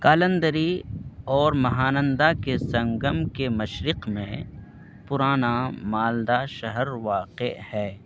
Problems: constant background noise